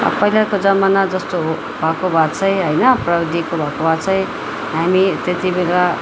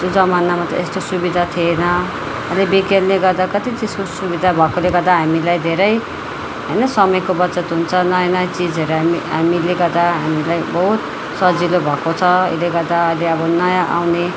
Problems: continuous background conversations